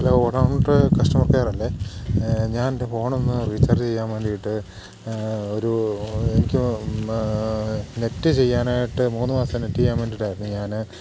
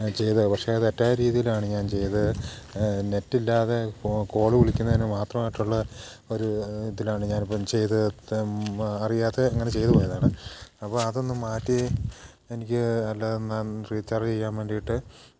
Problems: background sounds at intervals